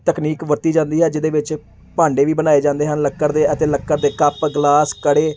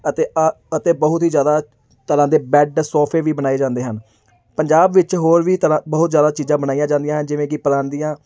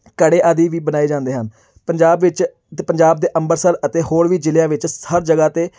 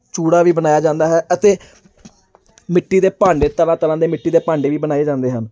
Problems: none marked